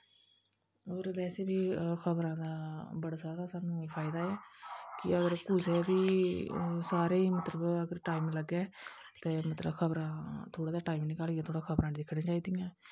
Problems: background sounds at intervals